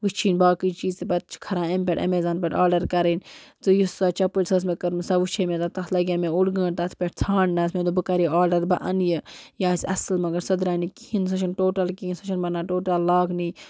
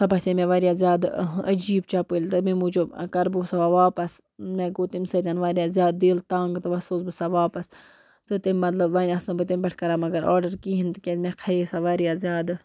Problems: constant background noise